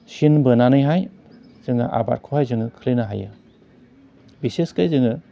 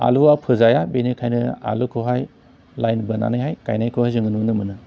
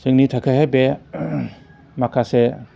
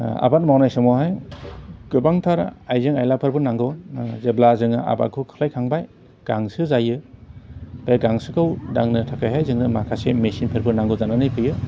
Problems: constant background noise